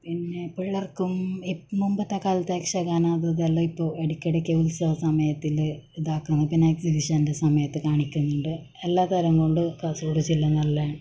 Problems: background sounds at intervals, low volume